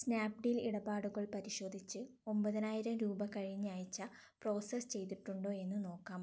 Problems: low volume